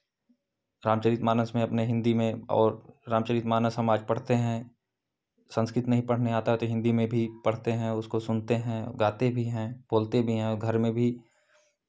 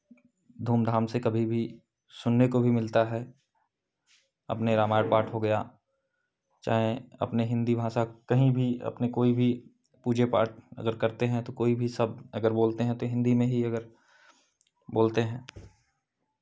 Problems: background sounds at intervals